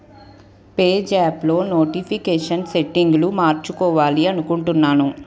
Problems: background conversations at intervals